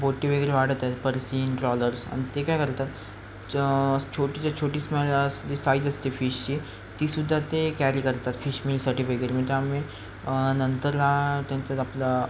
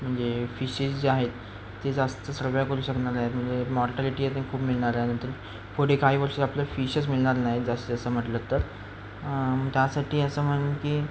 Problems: constant background noise